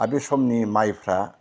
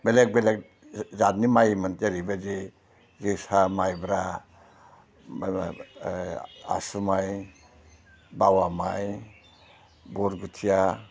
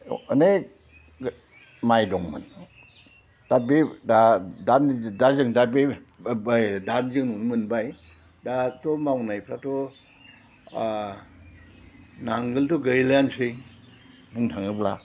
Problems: low volume